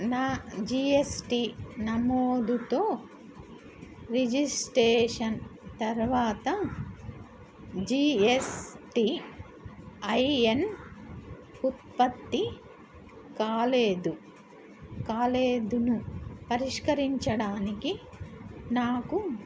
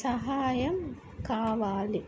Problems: constant background noise